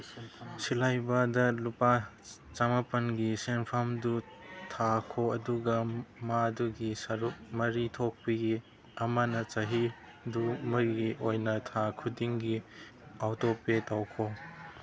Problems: background sounds at intervals